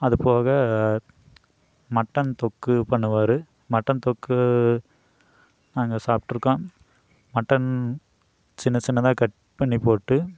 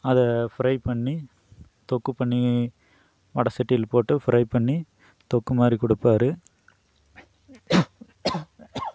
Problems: none marked